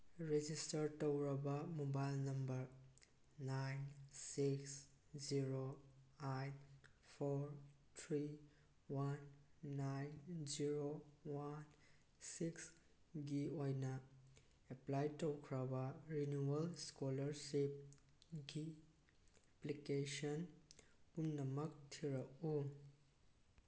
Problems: none marked